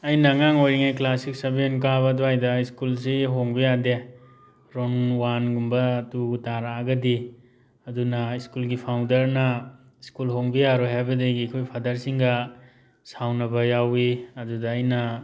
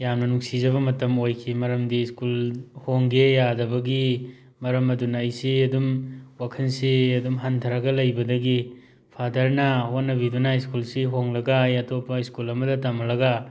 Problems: background sounds at intervals